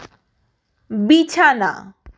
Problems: none marked